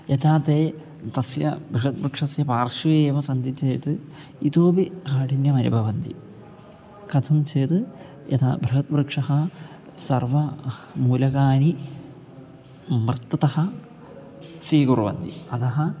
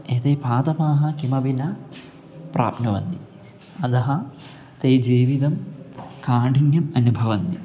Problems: constant background noise